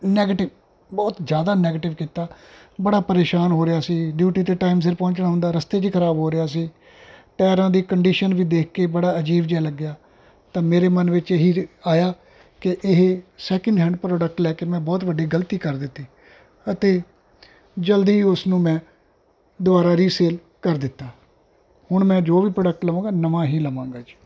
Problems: background sounds at intervals